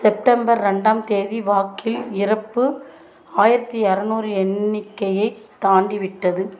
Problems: constant background noise, continuous background conversations